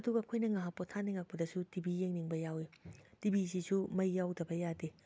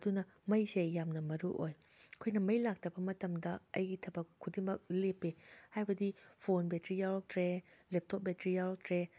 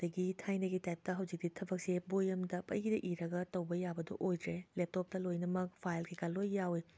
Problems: none marked